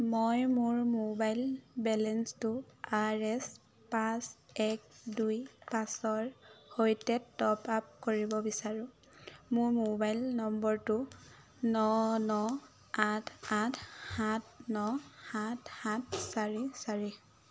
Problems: constant background noise